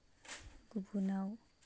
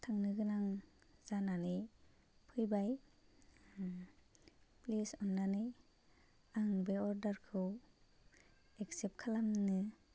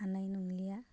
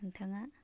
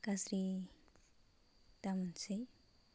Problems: constant background noise